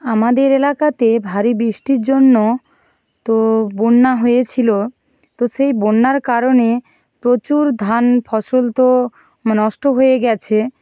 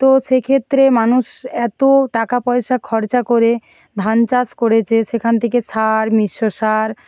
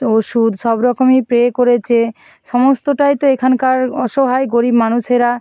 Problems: background sounds at intervals